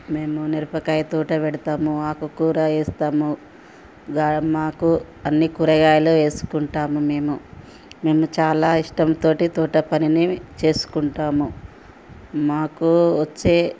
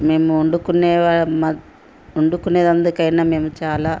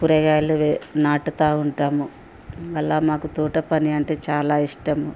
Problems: constant background noise